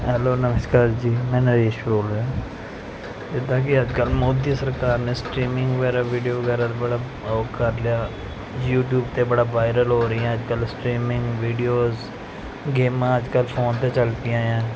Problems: none marked